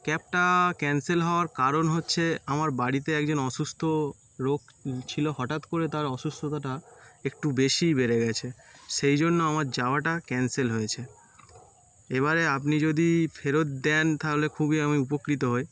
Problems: none marked